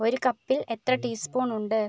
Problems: none marked